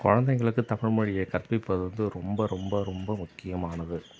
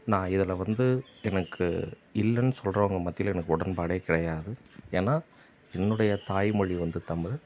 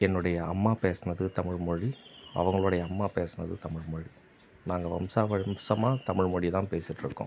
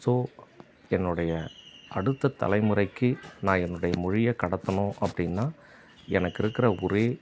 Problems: background sounds at intervals